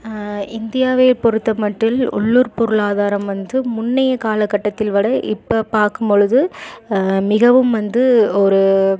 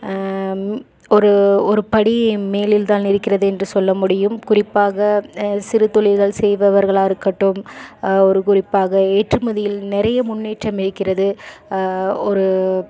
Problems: none marked